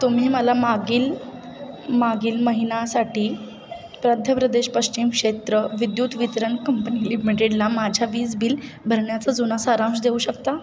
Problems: constant background noise, background conversations at intervals